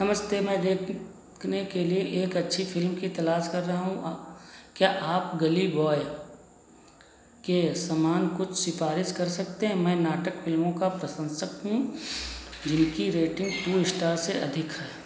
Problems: none marked